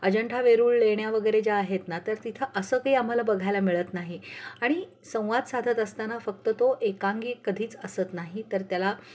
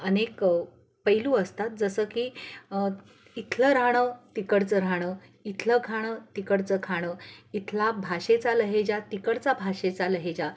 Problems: none marked